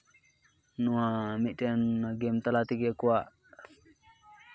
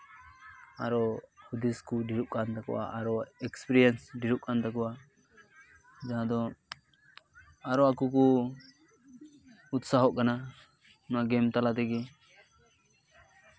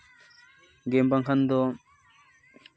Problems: constant background noise, continuous background conversations